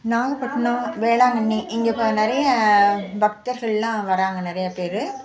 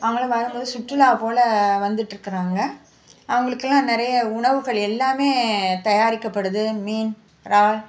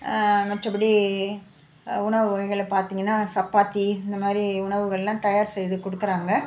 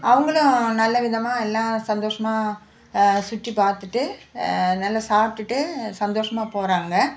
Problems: background conversations at intervals